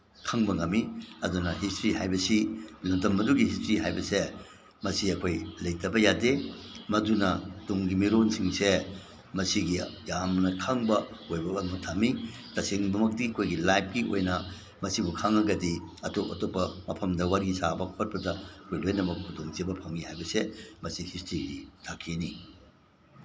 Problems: none marked